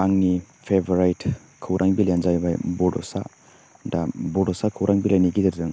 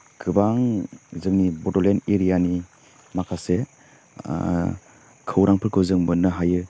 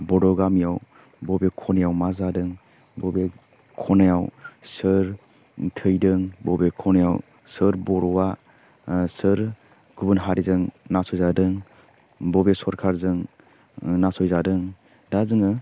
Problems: constant background noise